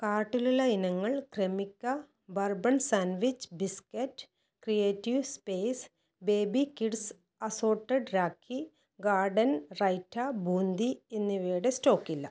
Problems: none marked